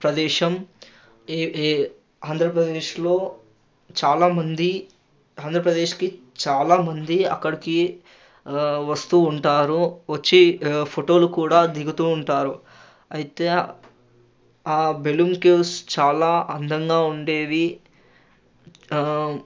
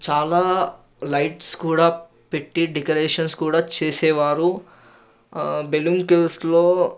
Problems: constant background noise